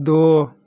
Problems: constant background noise